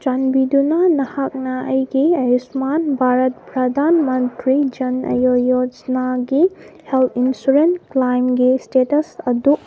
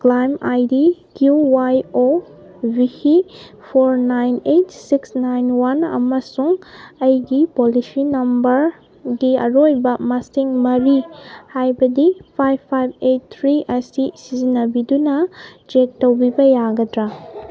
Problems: background sounds at intervals